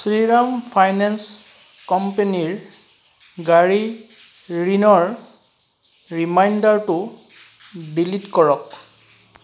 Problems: background sounds at intervals